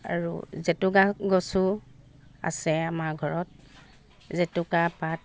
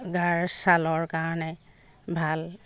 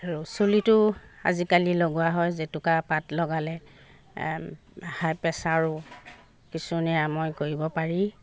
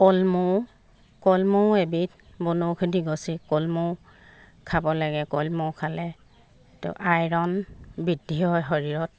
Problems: constant background noise